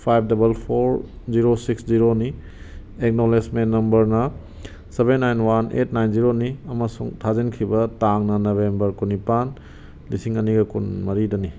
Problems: background sounds at intervals